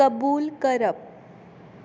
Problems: constant background noise